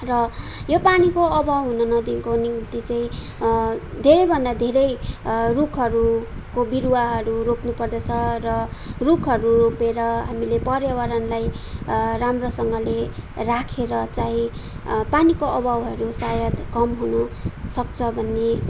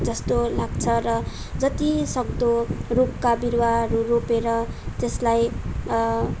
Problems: none marked